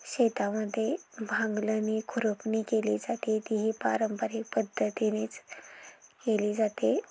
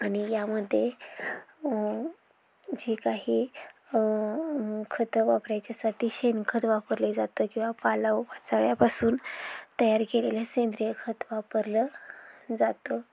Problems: background sounds at intervals